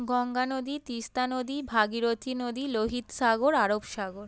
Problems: background sounds at intervals